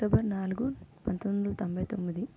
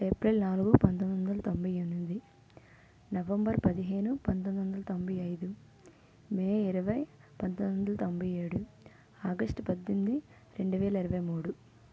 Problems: low volume